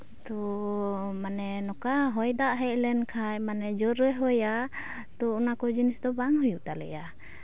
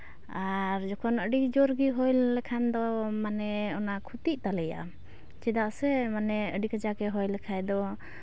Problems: none marked